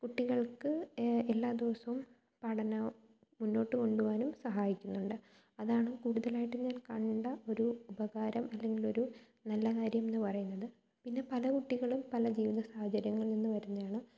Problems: low volume